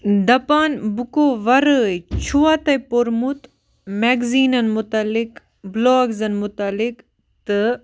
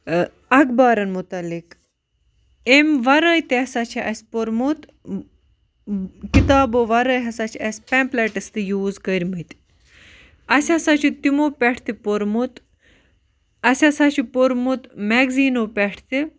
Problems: constant background noise